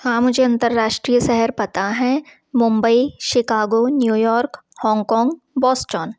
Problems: constant background noise